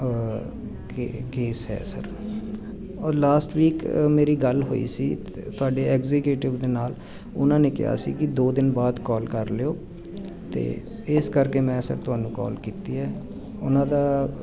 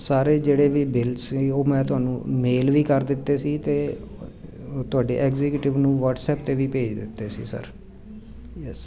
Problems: constant background noise